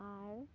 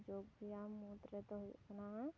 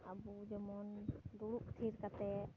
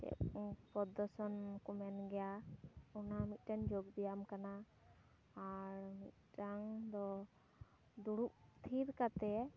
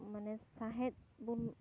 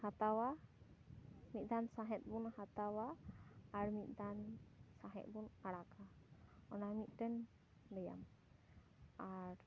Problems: none marked